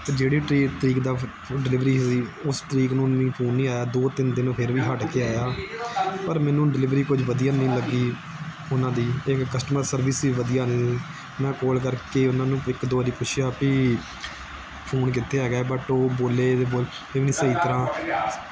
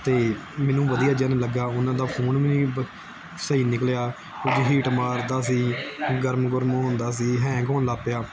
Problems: continuous background conversations